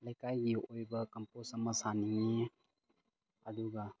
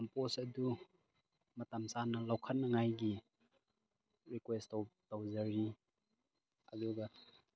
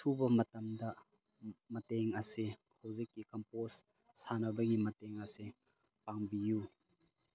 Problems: background sounds at intervals